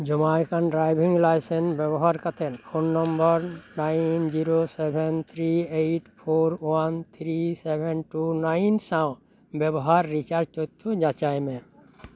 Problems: none marked